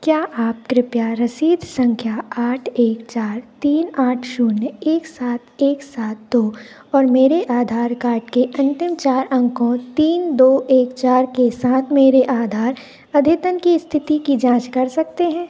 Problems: none marked